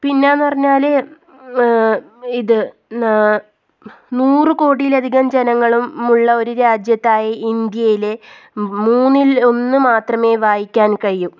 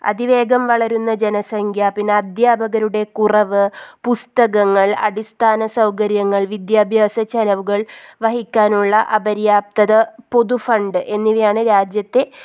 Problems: none marked